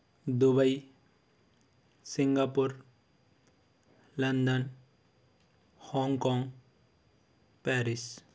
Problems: constant background noise